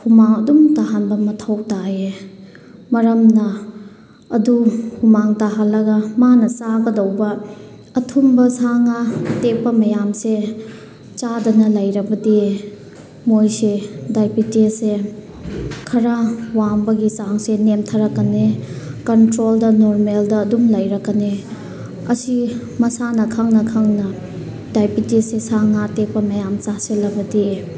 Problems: background sounds at intervals